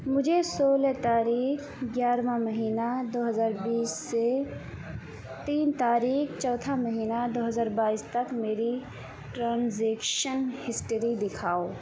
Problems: constant background noise